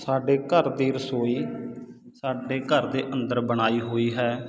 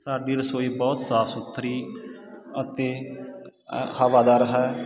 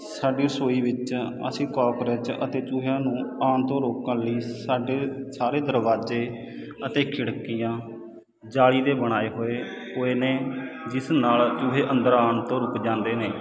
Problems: constant background noise